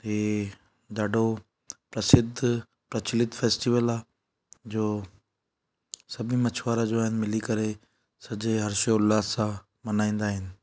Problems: none marked